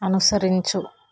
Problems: constant background noise